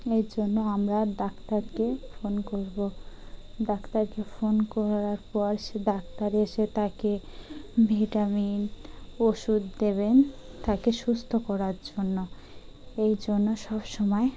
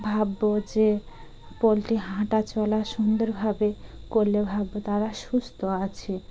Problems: none marked